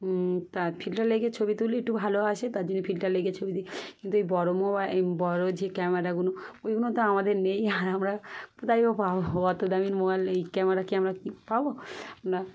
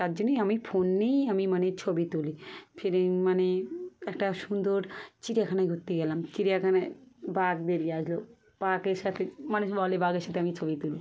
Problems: background sounds at intervals